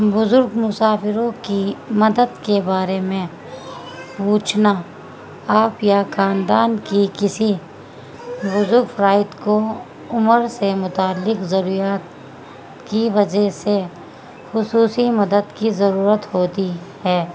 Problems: constant background noise